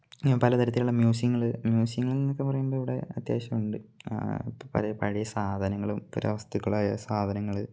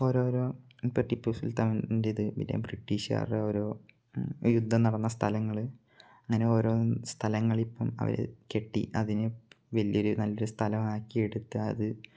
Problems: low volume